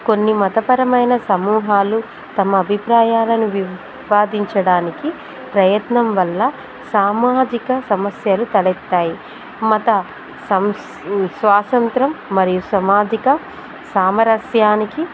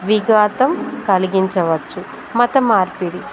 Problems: background sounds at intervals